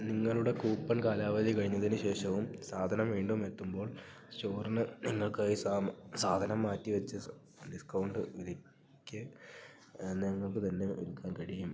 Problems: low volume